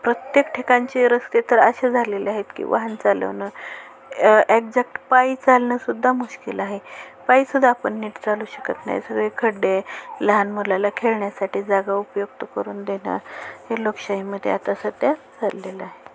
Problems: constant background noise, continuous background conversations